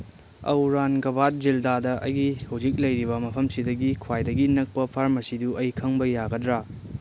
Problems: none marked